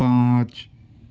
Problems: constant background noise, low volume